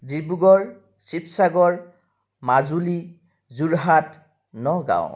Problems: none marked